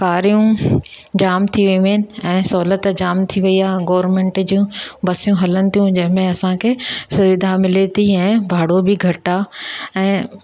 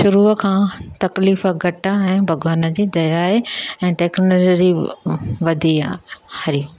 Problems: none marked